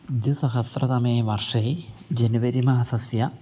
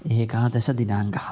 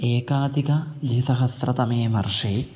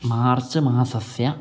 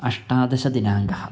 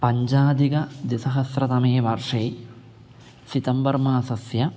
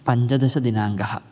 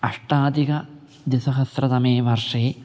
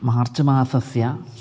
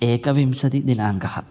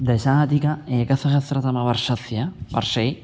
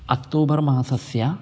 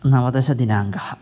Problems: background sounds at intervals